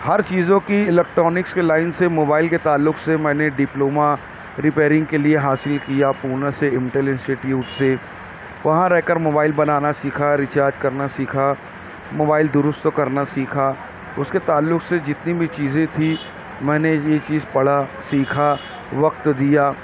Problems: none marked